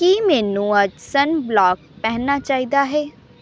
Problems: none marked